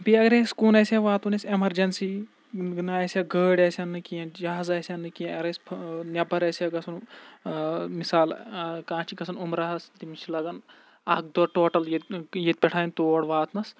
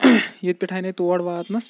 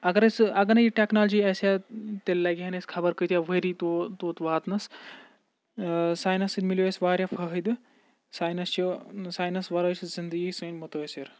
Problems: constant background noise